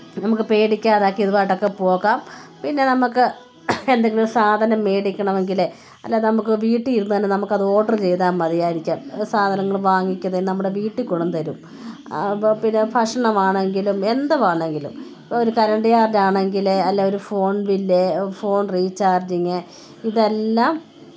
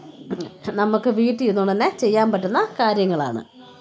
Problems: background sounds at intervals